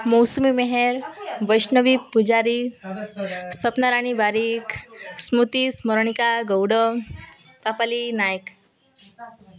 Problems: constant background noise